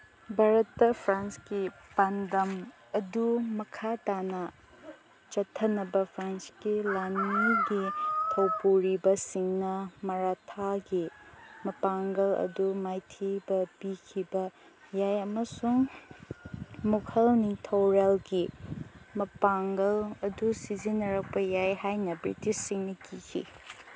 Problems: constant background noise